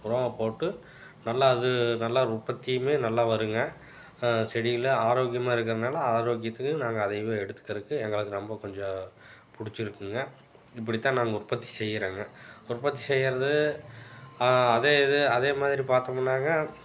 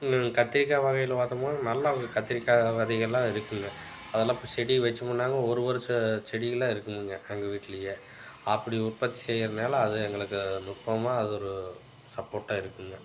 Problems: background sounds at intervals